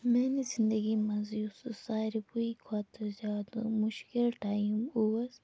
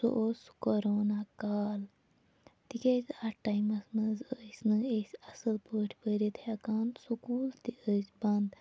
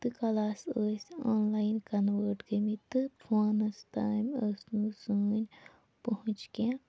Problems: background sounds at intervals, low volume